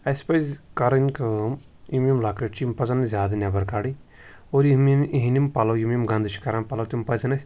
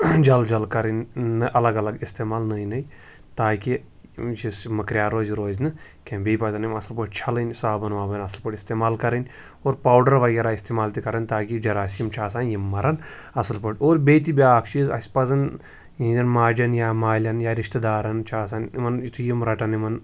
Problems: background sounds at intervals